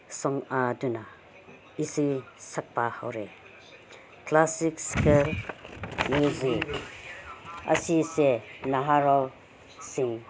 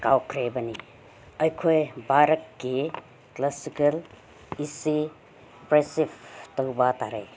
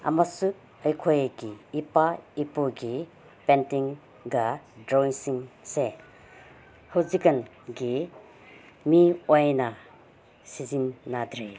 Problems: none marked